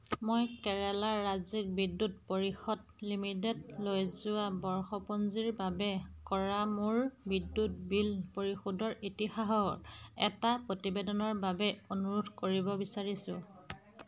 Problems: constant background noise, background conversations at intervals